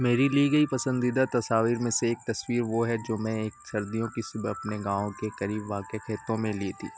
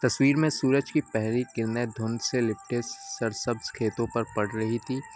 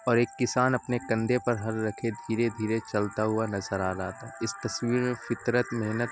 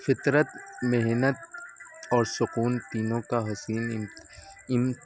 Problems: constant background noise